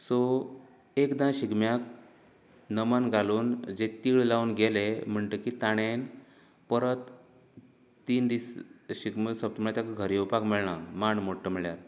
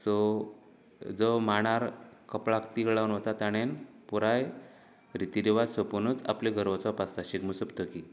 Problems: none marked